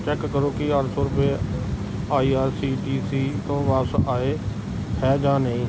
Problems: background sounds at intervals